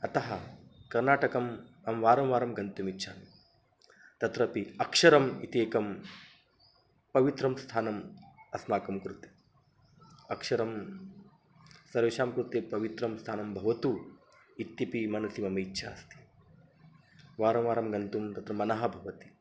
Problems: constant background noise